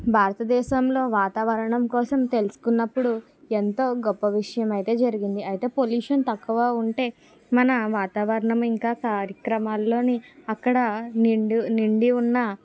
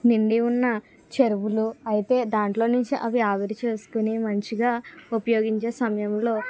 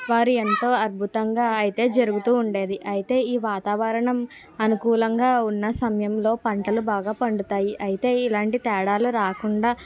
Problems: none marked